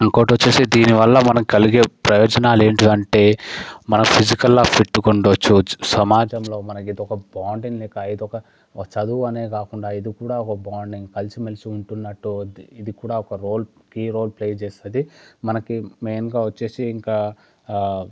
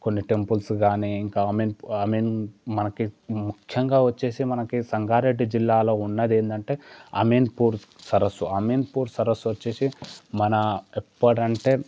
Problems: none marked